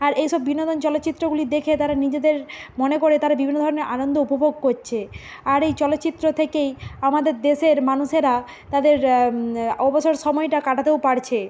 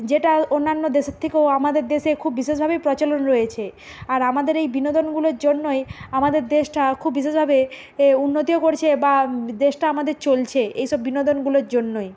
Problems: constant background noise